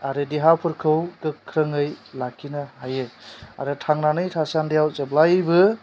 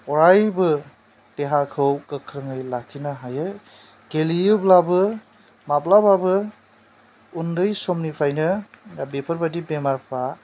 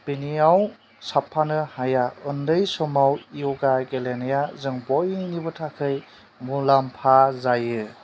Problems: constant background noise